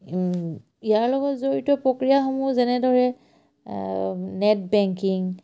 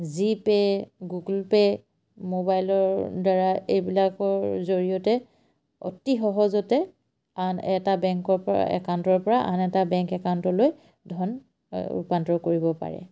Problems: none marked